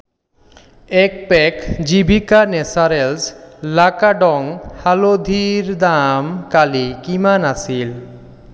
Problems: echo